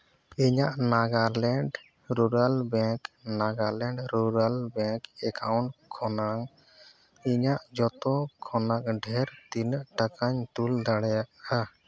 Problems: background sounds at intervals